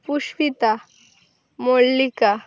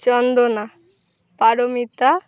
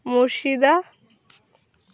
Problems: background sounds at intervals